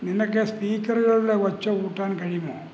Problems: none marked